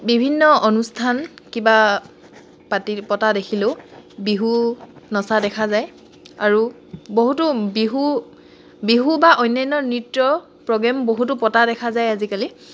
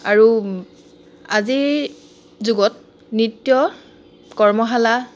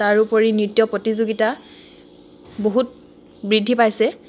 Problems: none marked